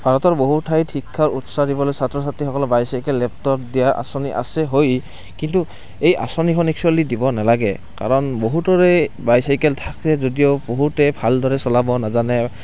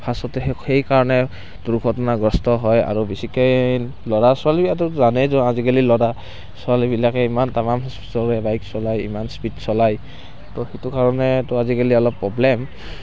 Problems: constant background noise